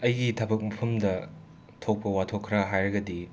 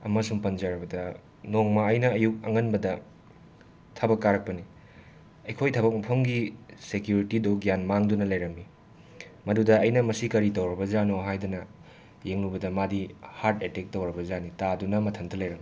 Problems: background sounds at intervals